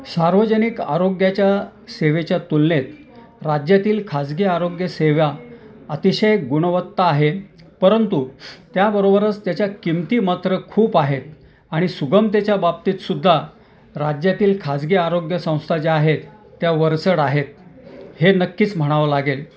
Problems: none marked